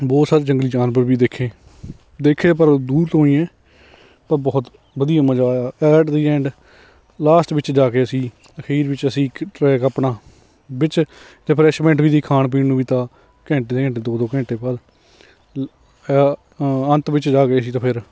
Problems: none marked